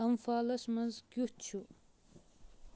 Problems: none marked